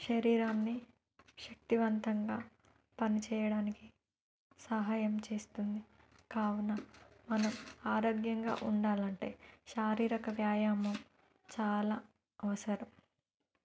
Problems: background sounds at intervals